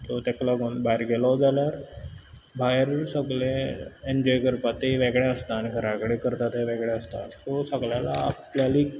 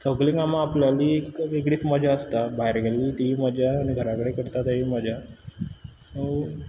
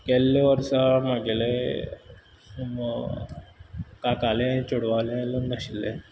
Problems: background sounds at intervals